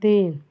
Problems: none marked